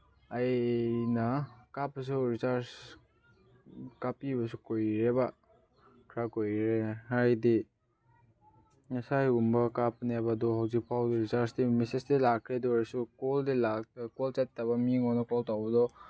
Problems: background sounds at intervals, background conversations at intervals